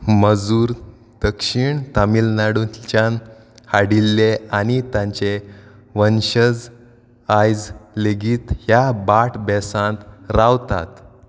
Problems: none marked